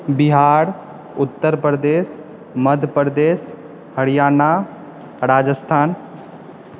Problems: background conversations at intervals